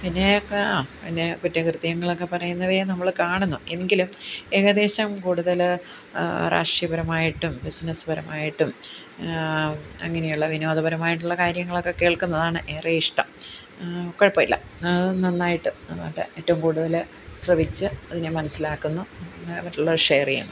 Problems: background conversations at intervals